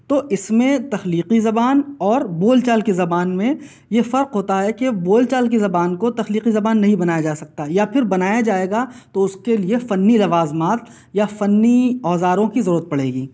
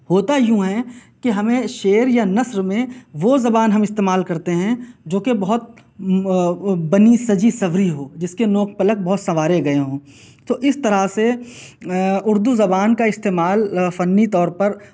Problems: none marked